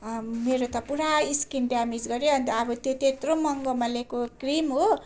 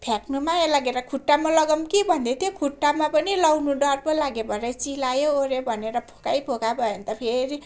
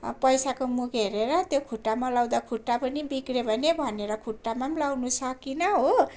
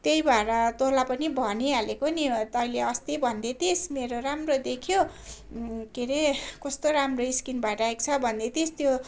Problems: constant background noise